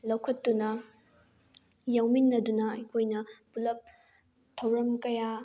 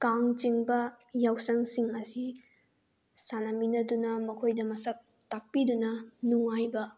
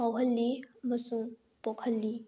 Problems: none marked